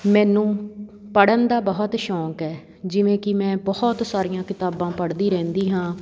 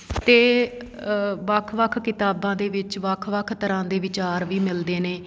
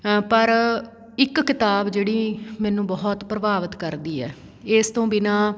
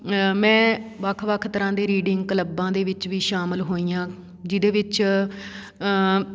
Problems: none marked